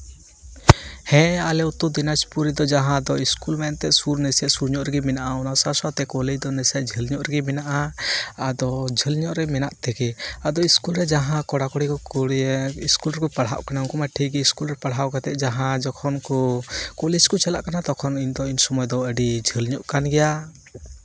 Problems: none marked